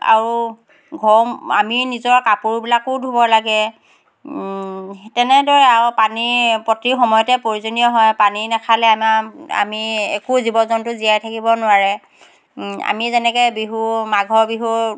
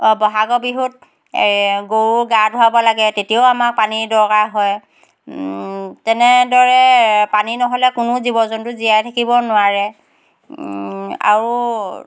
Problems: none marked